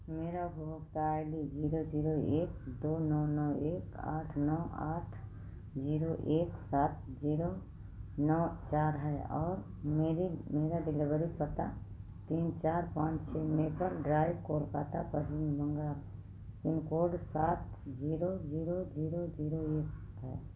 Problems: constant background noise